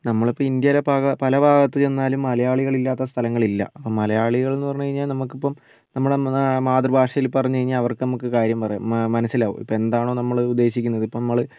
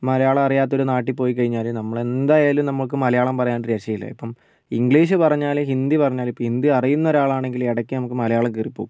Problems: none marked